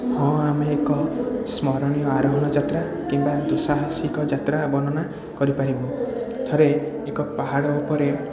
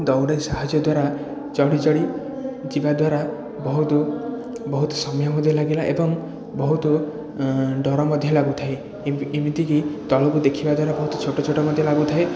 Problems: continuous background conversations